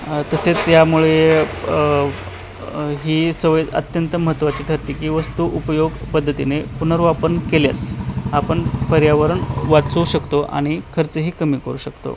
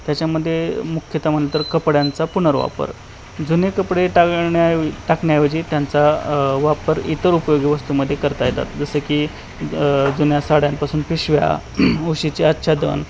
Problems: constant background noise